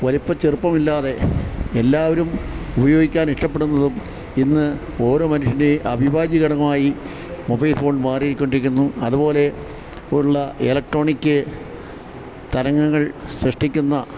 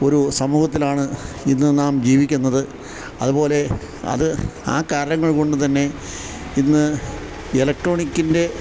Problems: background sounds at intervals